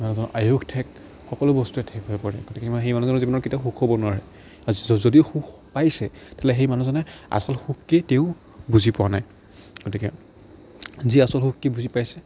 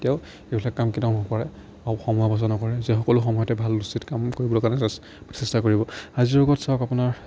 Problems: none marked